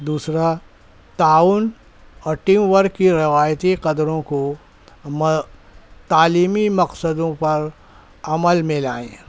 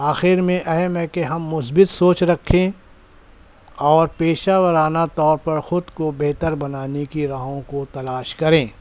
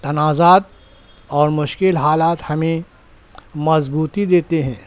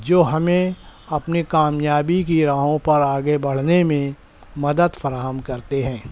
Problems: none marked